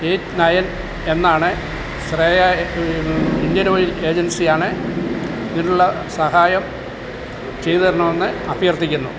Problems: constant background noise